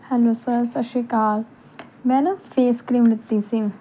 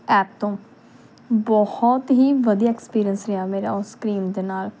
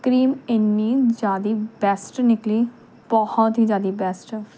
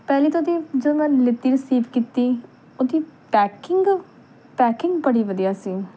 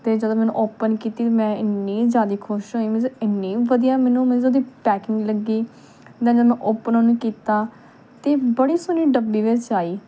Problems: none marked